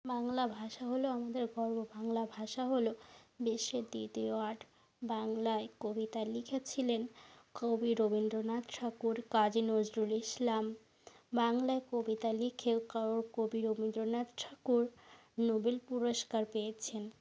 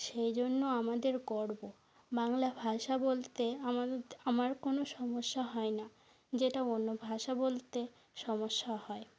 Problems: constant background noise